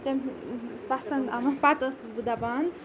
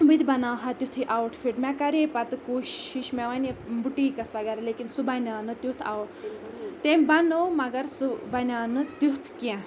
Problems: constant background noise, background conversations at intervals